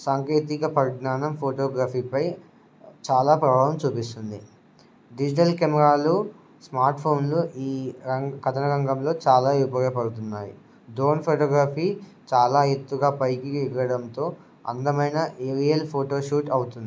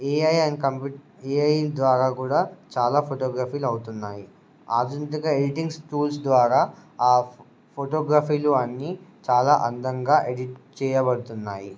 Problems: none marked